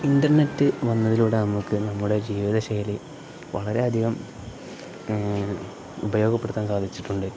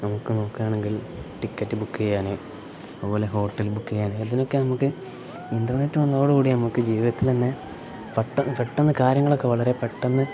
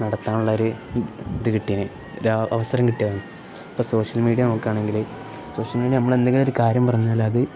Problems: none marked